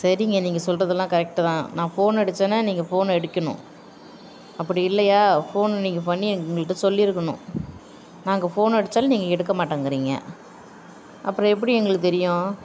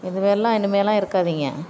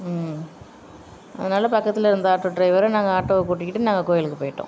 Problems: background sounds at intervals